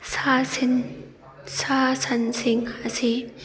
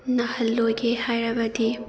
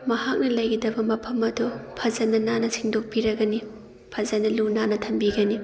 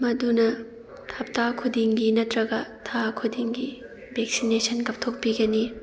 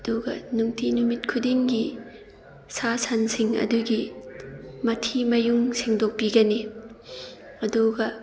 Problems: background sounds at intervals